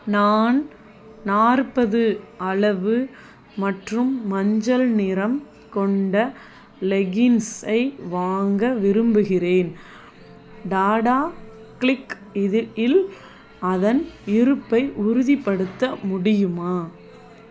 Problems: none marked